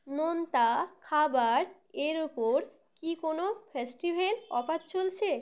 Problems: background sounds at intervals